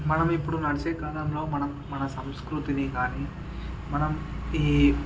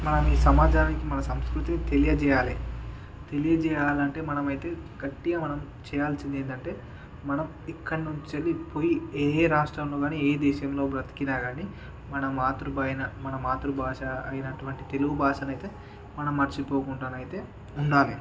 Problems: background conversations at intervals